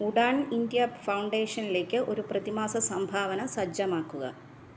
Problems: low volume